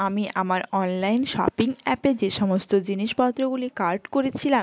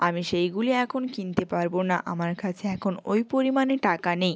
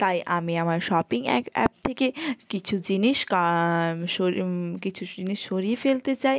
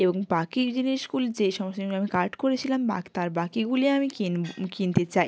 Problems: none marked